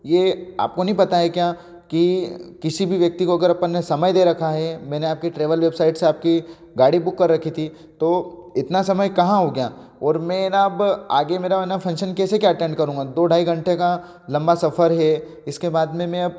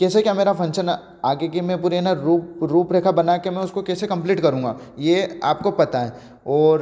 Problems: none marked